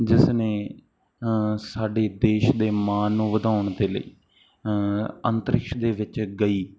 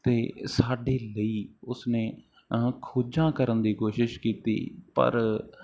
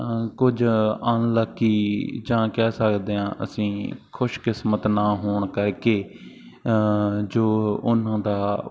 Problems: none marked